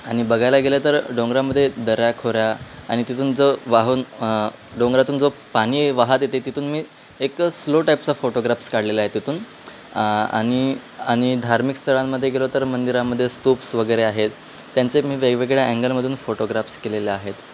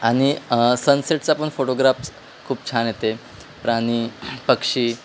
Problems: constant background noise